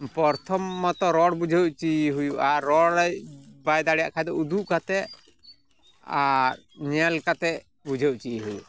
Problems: background sounds at intervals